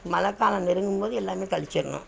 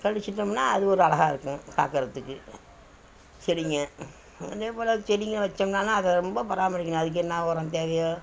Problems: background sounds at intervals